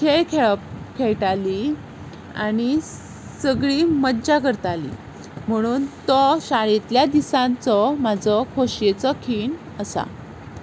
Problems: constant background noise